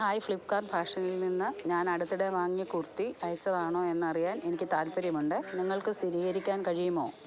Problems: background sounds at intervals, background conversations at intervals, low volume